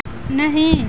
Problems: constant background noise